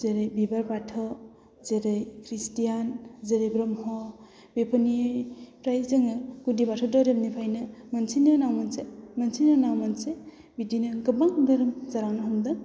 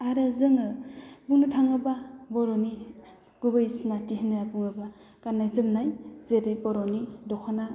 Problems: low volume